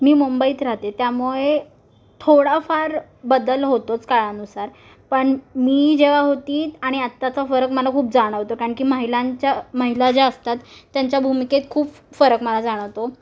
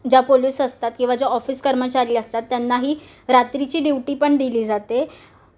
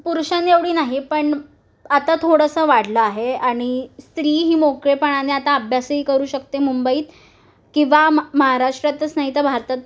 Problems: none marked